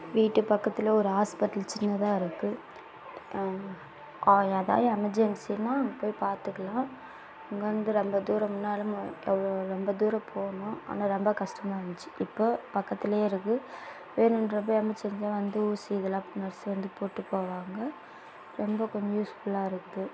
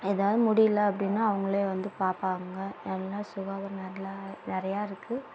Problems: constant background noise